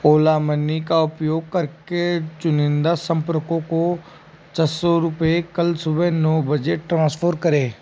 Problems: constant background noise